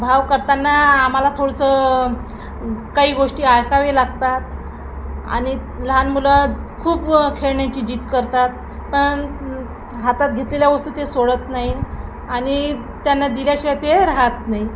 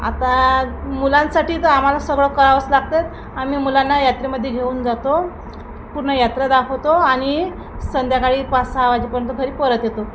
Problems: constant background noise